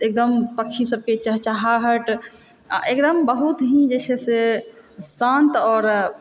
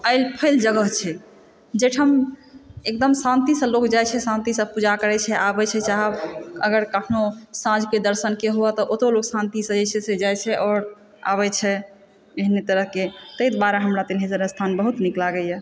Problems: background sounds at intervals, background conversations at intervals, echo